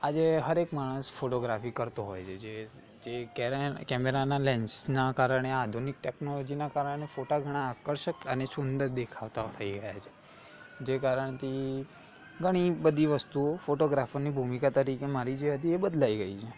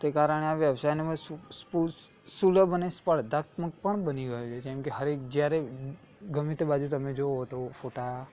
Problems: continuous background conversations